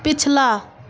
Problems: constant background noise